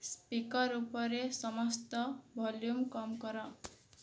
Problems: low volume